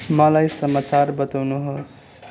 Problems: none marked